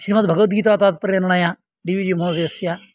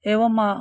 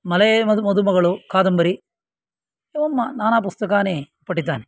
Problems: none marked